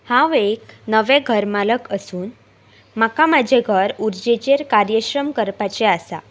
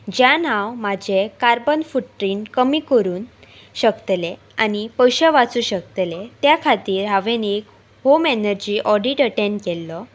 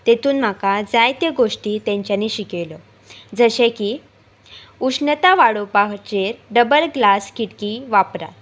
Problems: constant background noise